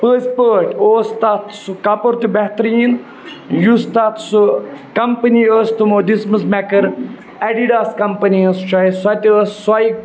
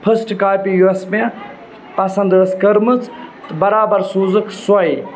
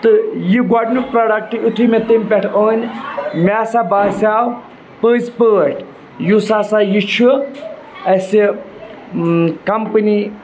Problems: constant background noise